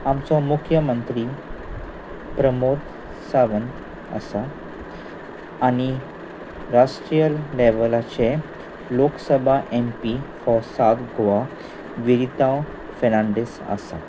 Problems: constant background noise